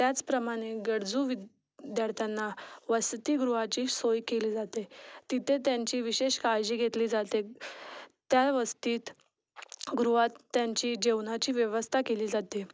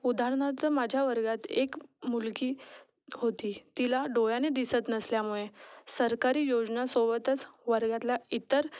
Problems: none marked